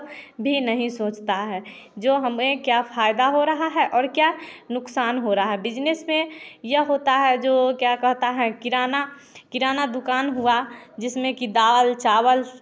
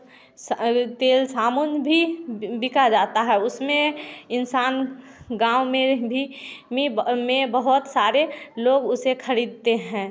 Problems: background sounds at intervals